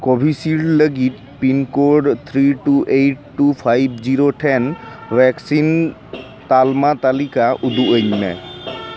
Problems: background sounds at intervals, continuous background conversations